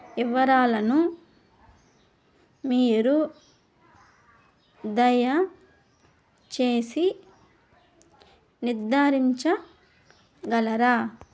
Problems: background sounds at intervals